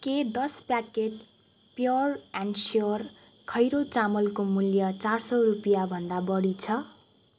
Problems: none marked